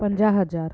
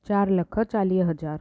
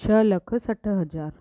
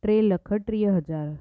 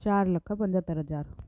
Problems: none marked